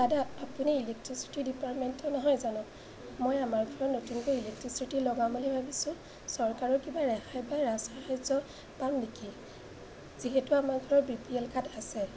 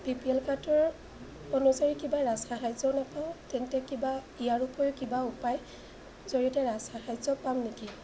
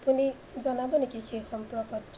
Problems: none marked